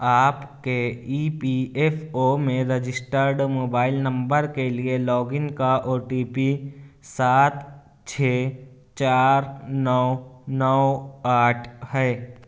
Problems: none marked